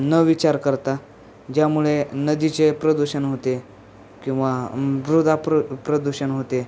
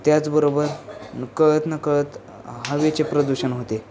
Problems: constant background noise, background conversations at intervals